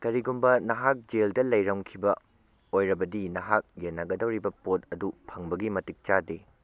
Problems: none marked